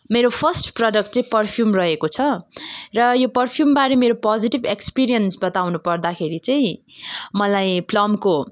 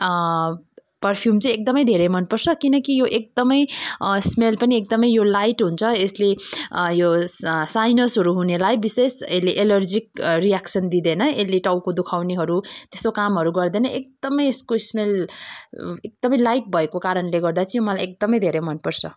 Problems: none marked